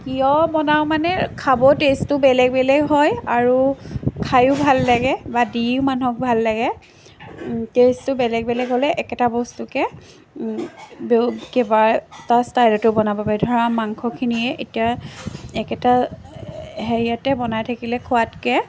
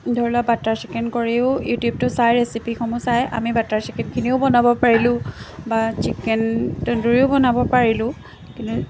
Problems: constant background noise, background conversations at intervals